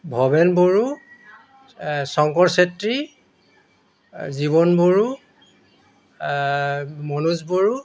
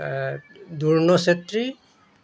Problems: none marked